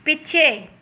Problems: none marked